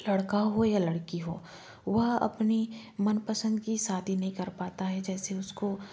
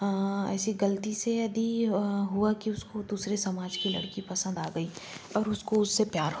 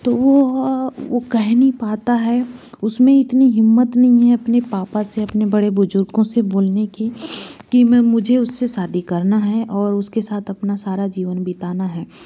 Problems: constant background noise